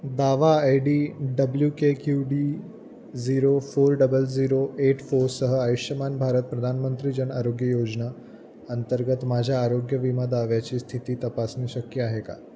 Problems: none marked